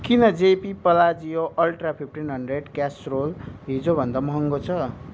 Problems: constant background noise